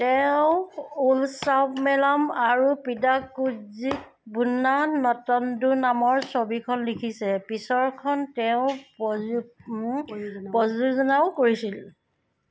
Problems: background sounds at intervals